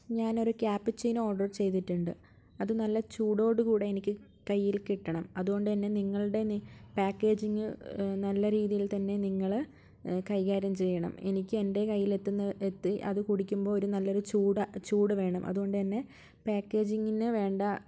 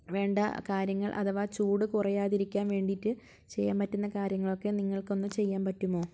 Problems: low volume